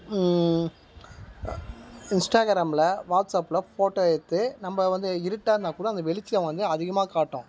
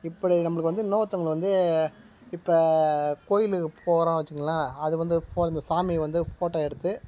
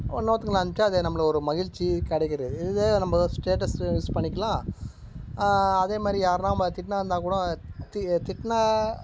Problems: background sounds at intervals